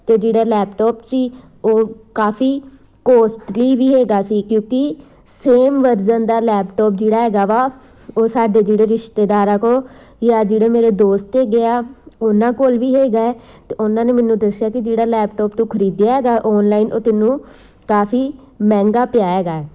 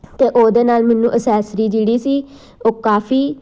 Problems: constant background noise